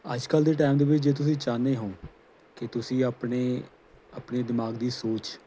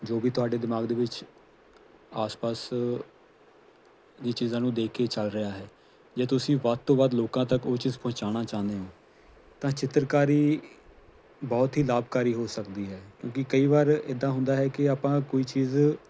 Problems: none marked